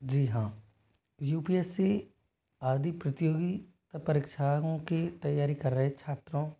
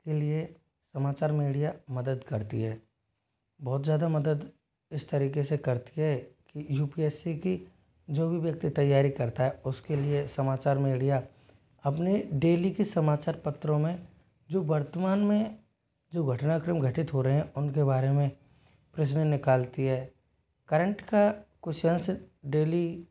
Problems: none marked